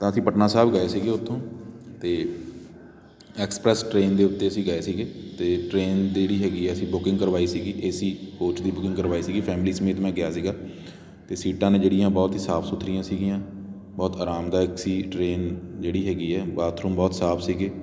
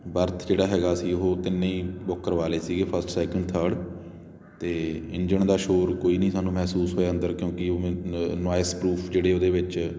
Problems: constant background noise